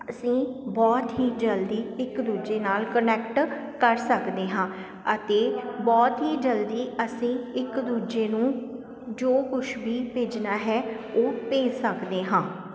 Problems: constant background noise